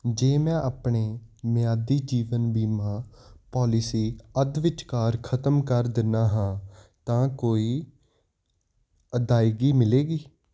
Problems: constant background noise